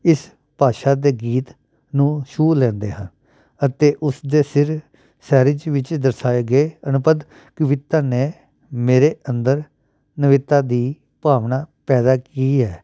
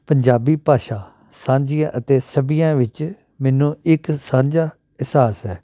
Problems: background sounds at intervals